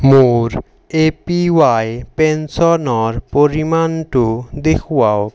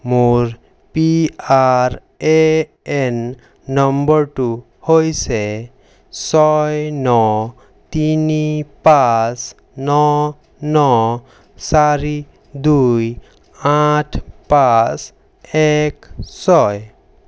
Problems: none marked